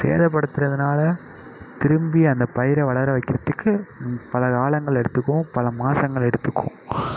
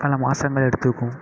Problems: background sounds at intervals